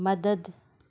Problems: none marked